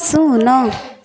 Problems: constant background noise